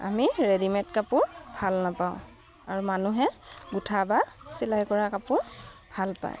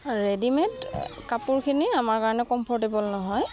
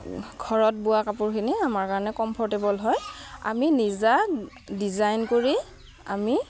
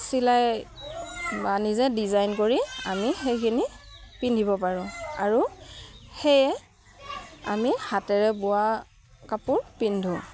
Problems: background sounds at intervals